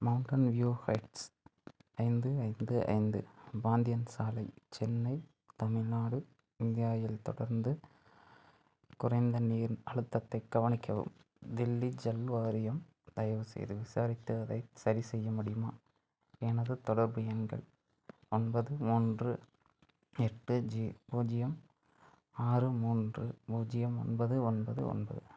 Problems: low volume